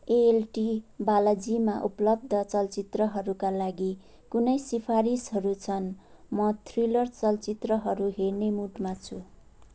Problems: none marked